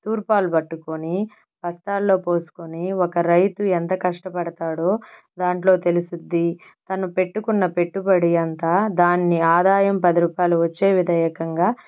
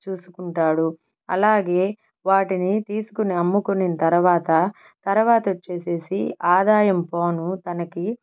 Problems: background sounds at intervals